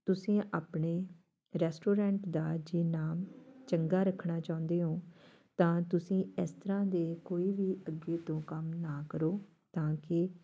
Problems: background sounds at intervals, background conversations at intervals